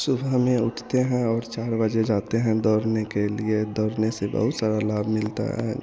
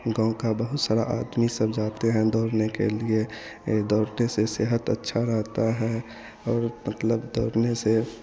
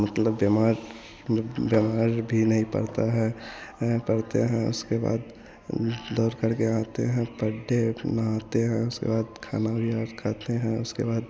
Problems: constant background noise